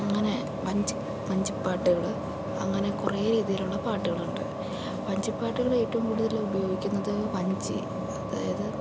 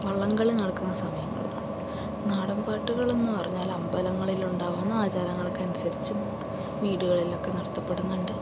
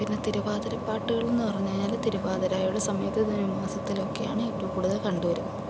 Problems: none marked